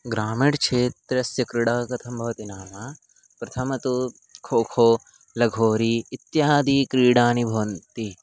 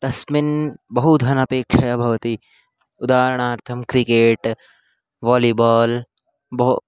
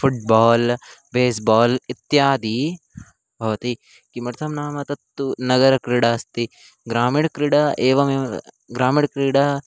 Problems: constant background noise